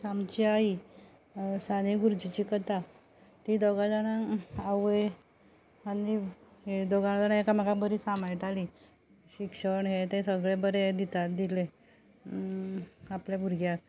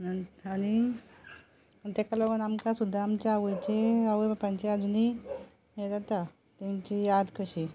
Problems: low volume